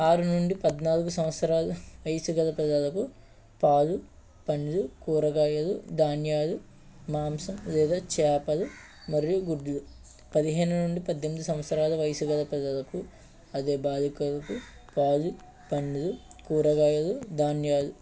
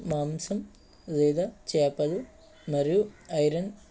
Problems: background sounds at intervals